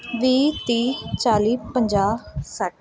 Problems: background sounds at intervals